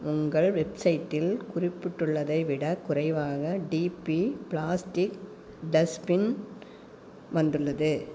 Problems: none marked